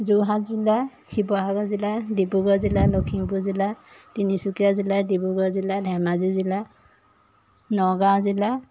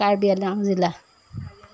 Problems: background sounds at intervals